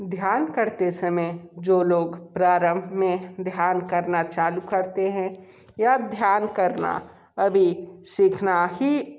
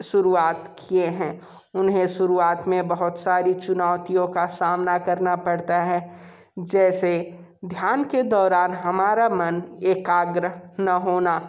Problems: constant background noise